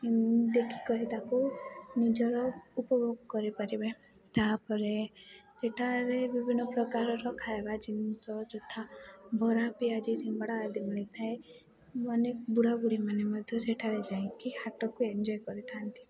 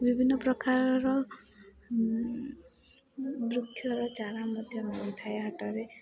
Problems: constant background noise, continuous background conversations